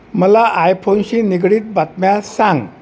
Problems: constant background noise